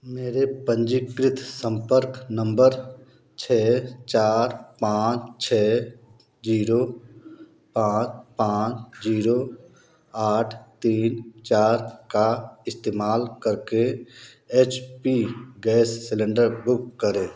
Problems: background sounds at intervals